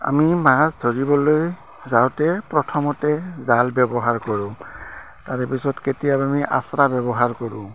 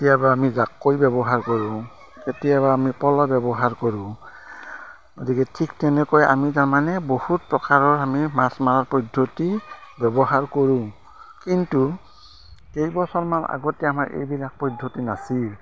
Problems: constant background noise, background conversations at intervals